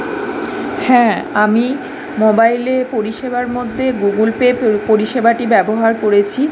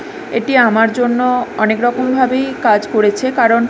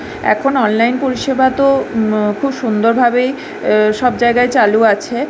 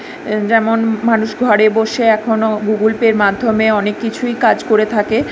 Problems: background sounds at intervals